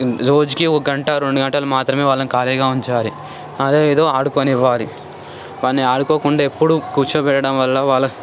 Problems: constant background noise, background conversations at intervals